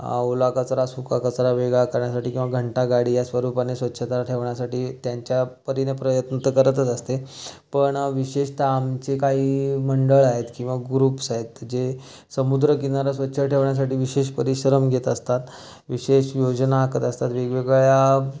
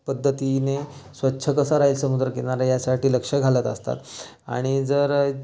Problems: constant background noise, background conversations at intervals